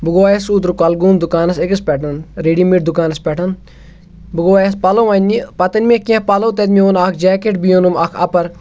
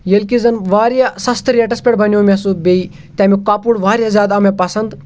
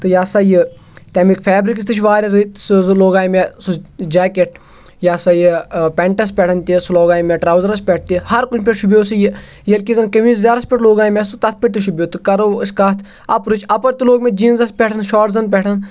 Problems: constant background noise